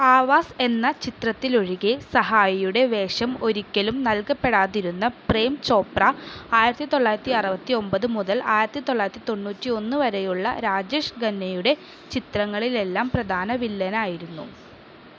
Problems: none marked